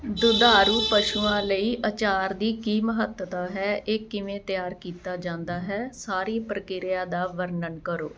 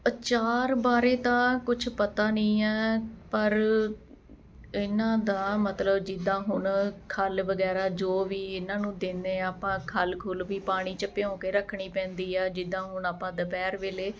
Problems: constant background noise